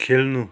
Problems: none marked